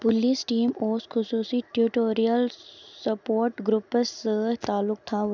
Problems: none marked